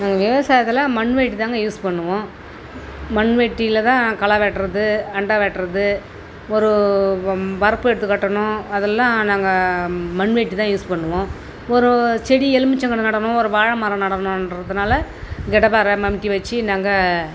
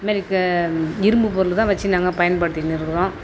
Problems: constant background noise